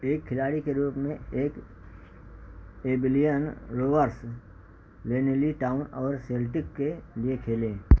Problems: constant background noise